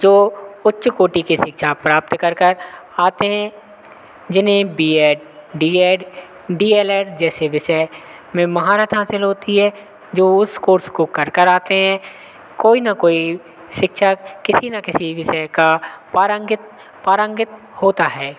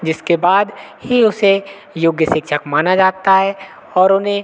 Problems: none marked